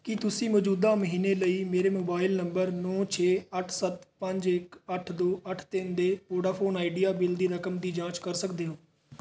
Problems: background sounds at intervals